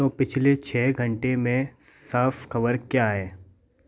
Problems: background sounds at intervals